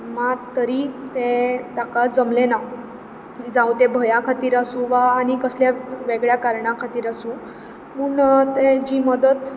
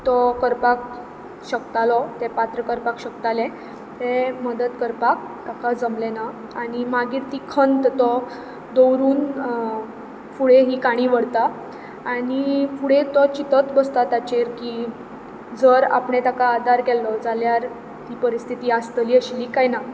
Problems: constant background noise